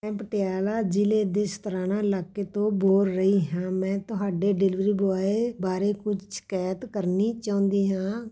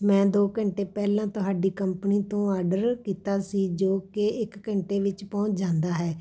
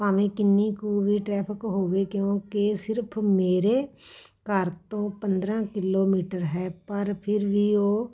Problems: background sounds at intervals, background conversations at intervals